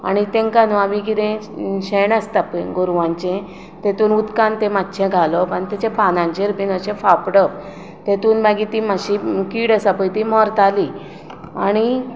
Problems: constant background noise